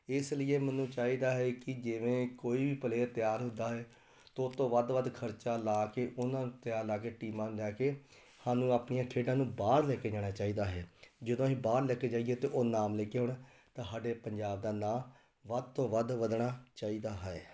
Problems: none marked